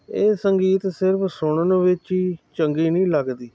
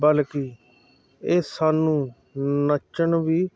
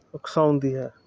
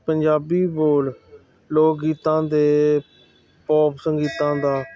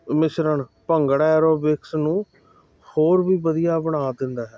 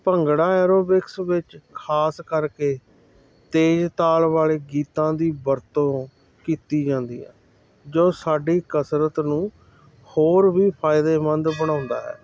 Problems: constant background noise